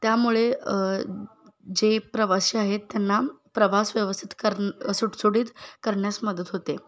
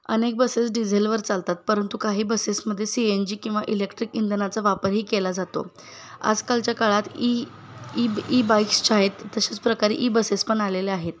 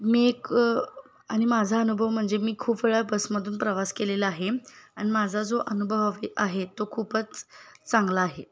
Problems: none marked